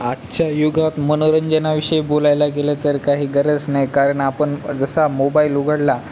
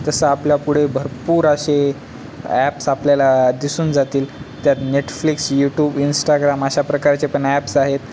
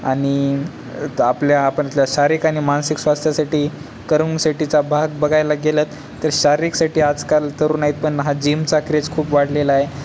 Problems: constant background noise, background conversations at intervals